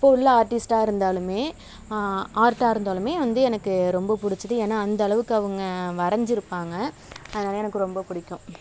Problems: none marked